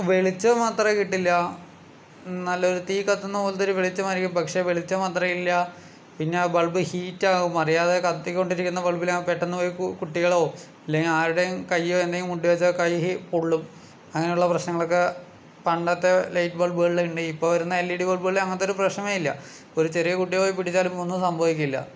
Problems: none marked